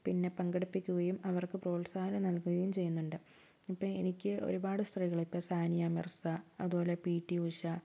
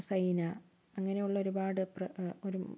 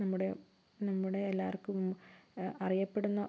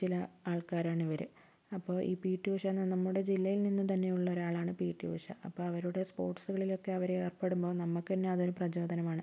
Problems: constant background noise, low volume